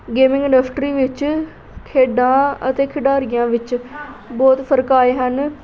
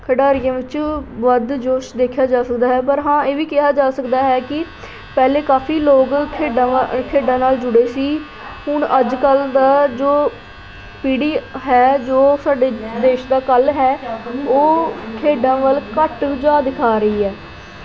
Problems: constant background noise